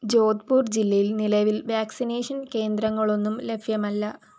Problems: background sounds at intervals